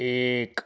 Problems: none marked